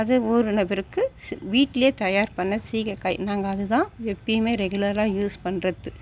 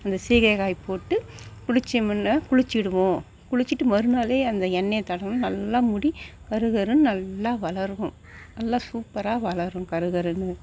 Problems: none marked